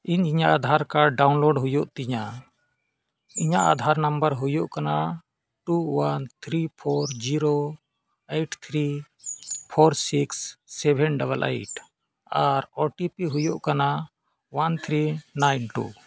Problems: background sounds at intervals